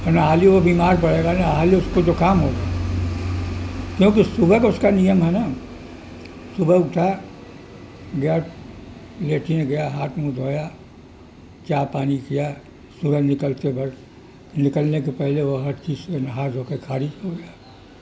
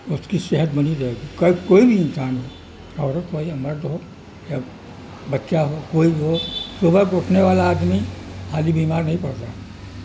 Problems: constant background noise